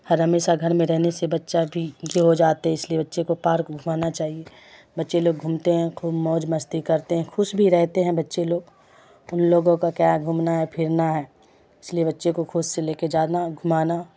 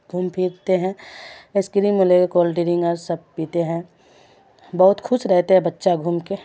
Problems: constant background noise